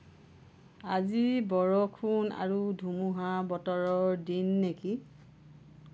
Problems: low volume